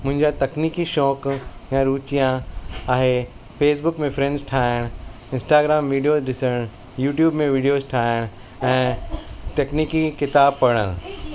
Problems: constant background noise, background conversations at intervals